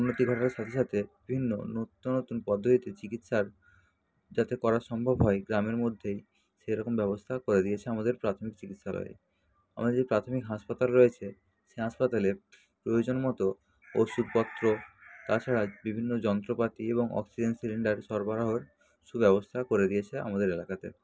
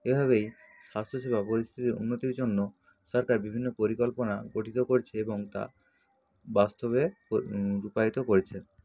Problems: constant background noise, background conversations at intervals